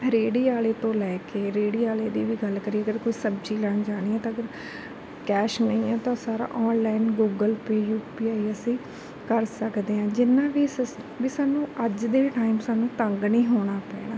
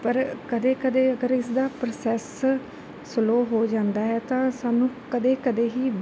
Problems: background sounds at intervals, background conversations at intervals